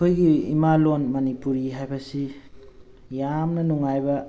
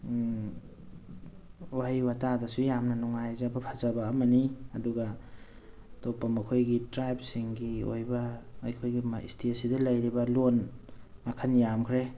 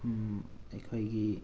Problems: background sounds at intervals